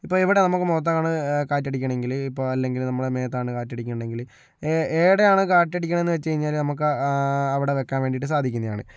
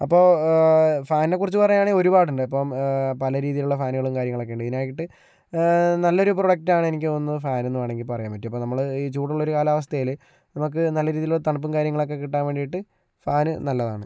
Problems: none marked